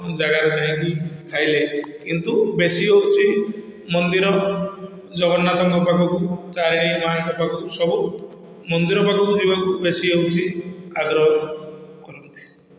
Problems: constant background noise, echo